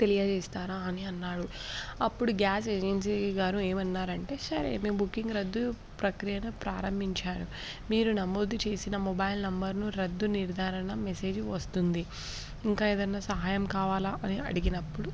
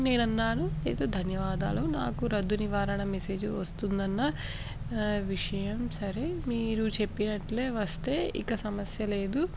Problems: background sounds at intervals